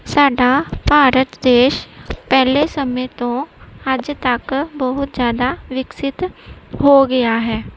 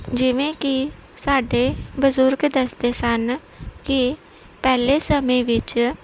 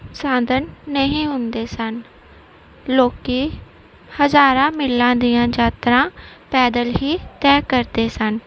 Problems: background sounds at intervals